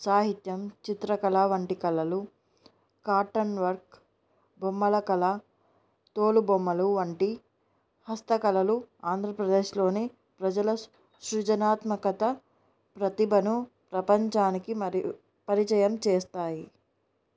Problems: none marked